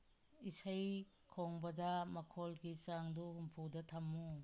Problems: low volume